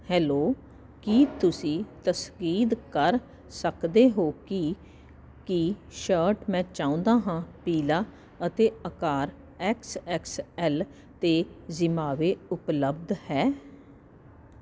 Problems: constant background noise